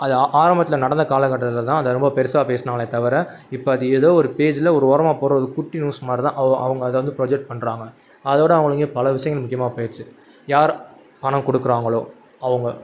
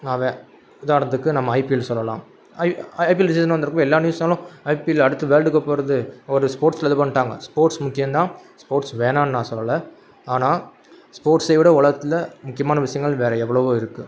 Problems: constant background noise